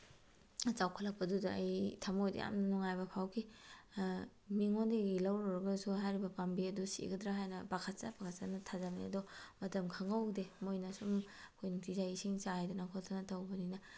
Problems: none marked